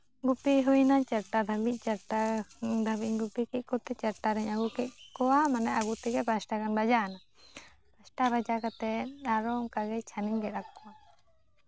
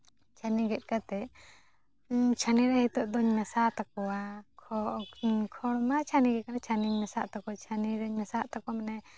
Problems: none marked